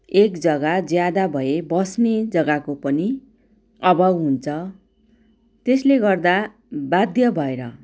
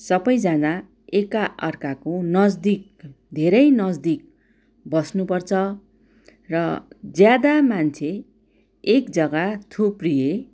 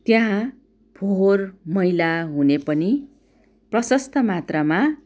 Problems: none marked